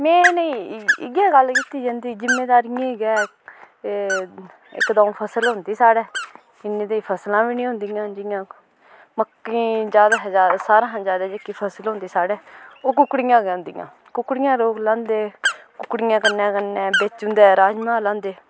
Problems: background sounds at intervals